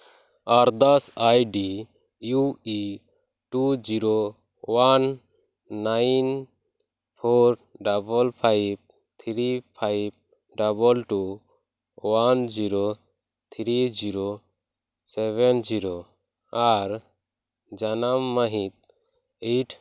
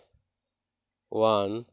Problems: background sounds at intervals